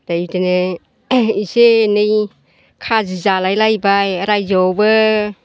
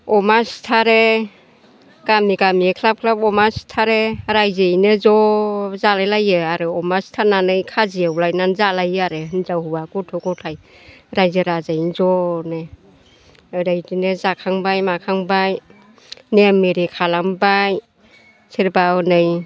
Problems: constant background noise